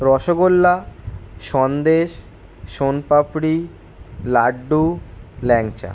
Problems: constant background noise